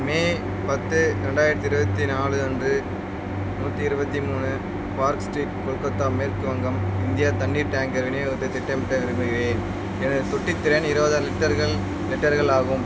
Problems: constant background noise